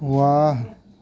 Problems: background sounds at intervals, background conversations at intervals